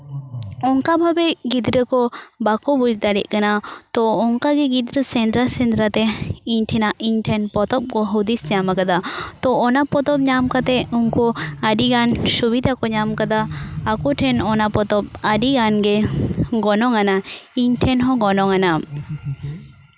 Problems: background conversations at intervals